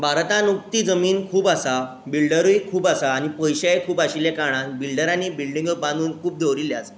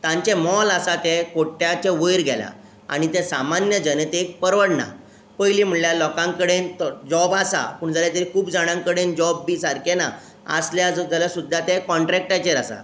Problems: none marked